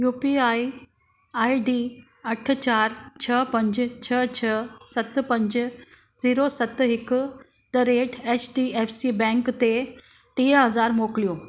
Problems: constant background noise